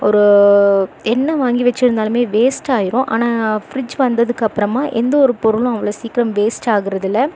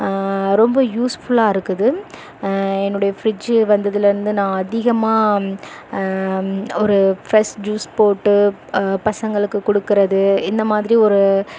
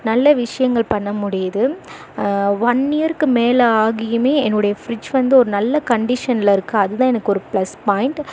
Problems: none marked